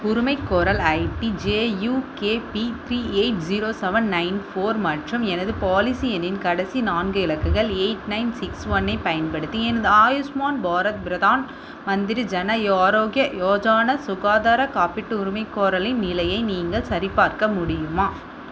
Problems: constant background noise